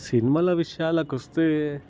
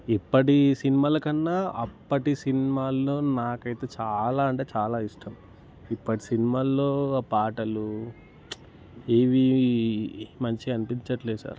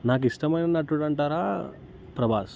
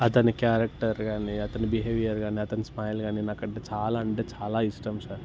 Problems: background sounds at intervals